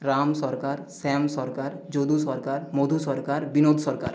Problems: echo